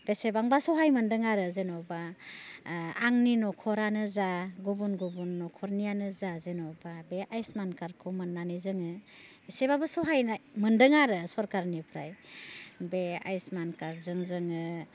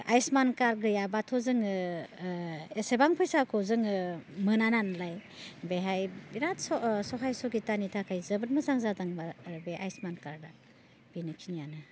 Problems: constant background noise